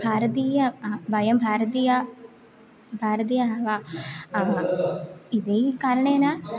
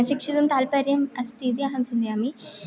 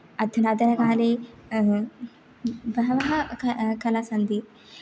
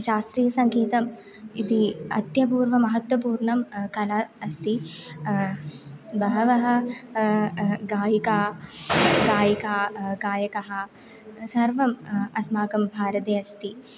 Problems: background conversations at intervals